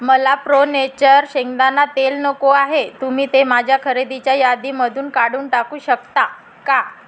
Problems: constant background noise